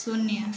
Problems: constant background noise